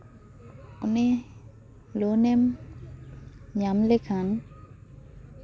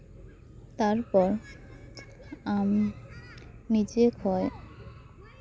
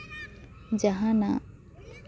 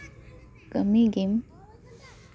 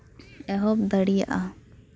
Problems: none marked